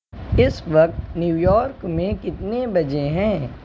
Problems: constant background noise